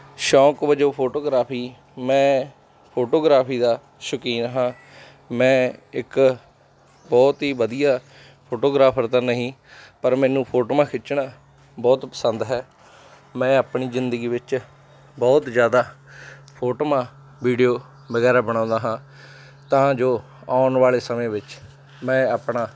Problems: background sounds at intervals, background conversations at intervals